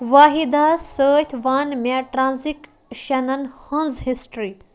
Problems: constant background noise